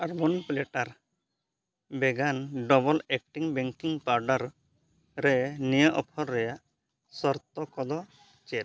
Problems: background sounds at intervals